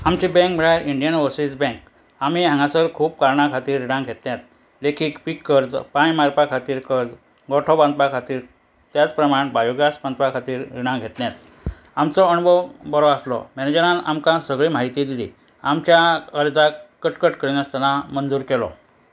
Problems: none marked